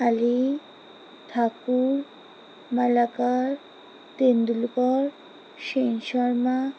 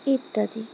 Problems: constant background noise